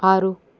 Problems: constant background noise, background conversations at intervals